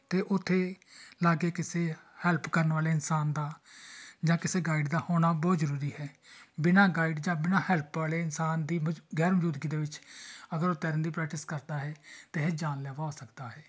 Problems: background sounds at intervals, background conversations at intervals